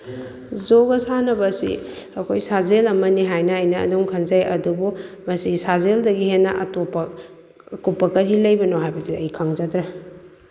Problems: none marked